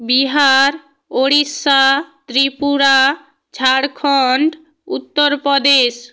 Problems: none marked